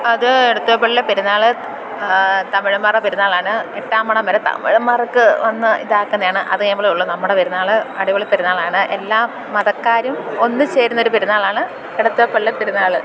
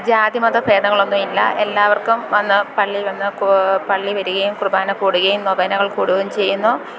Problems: constant background noise, background conversations at intervals